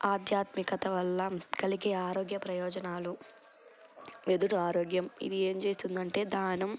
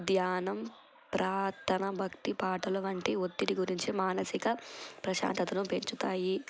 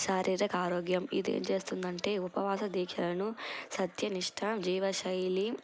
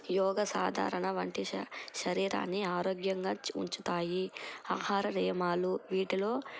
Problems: none marked